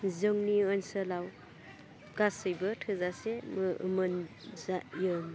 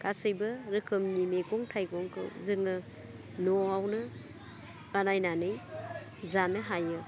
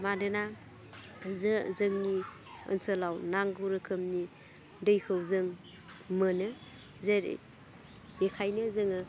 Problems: low volume